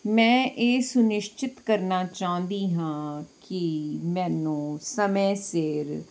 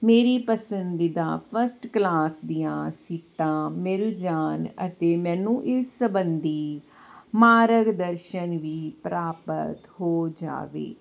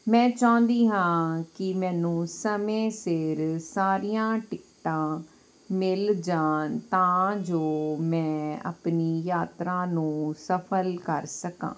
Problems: none marked